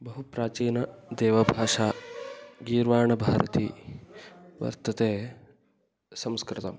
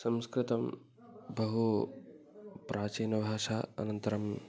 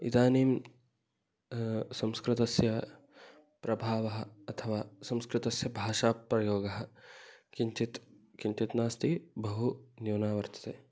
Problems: none marked